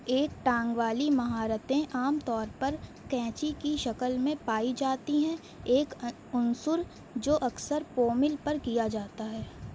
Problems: none marked